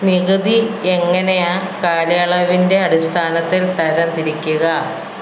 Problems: constant background noise